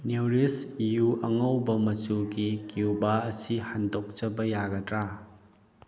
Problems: none marked